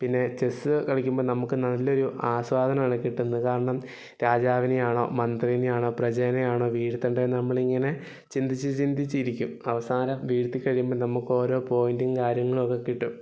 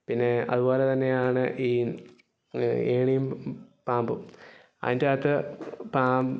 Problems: background sounds at intervals